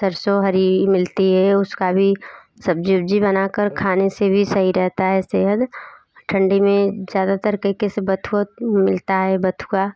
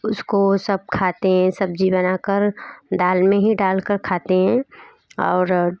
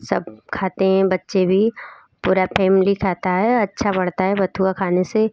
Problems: none marked